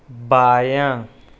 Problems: none marked